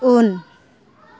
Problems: background conversations at intervals